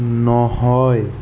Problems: constant background noise